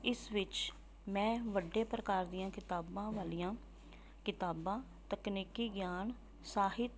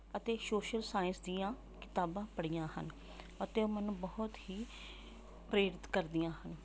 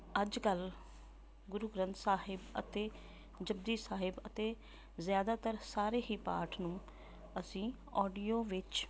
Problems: none marked